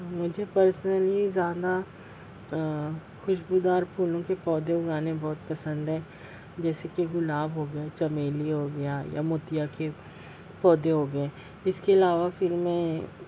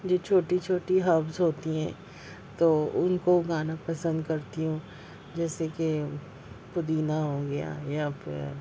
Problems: constant background noise